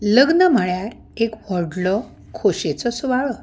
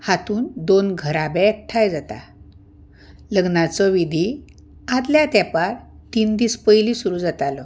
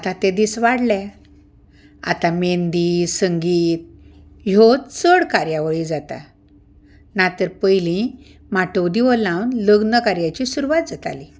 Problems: background sounds at intervals